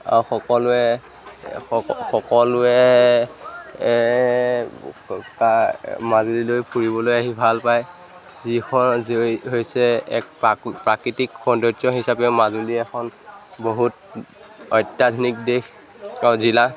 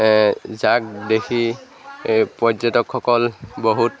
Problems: background sounds at intervals, background conversations at intervals